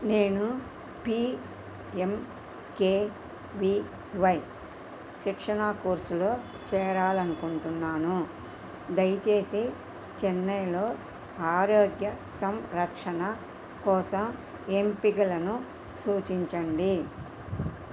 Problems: constant background noise